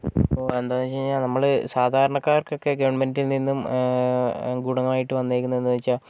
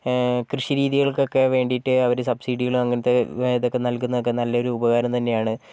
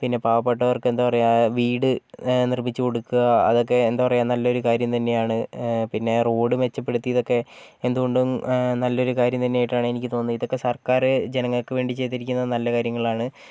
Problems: none marked